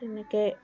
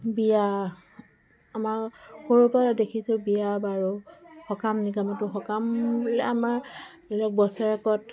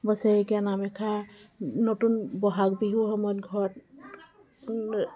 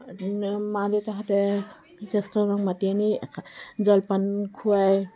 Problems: background sounds at intervals, continuous background conversations